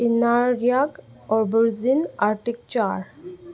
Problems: background sounds at intervals